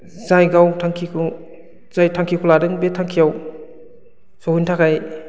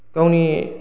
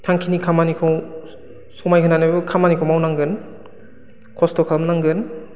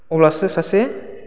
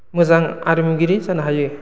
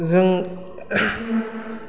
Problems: low volume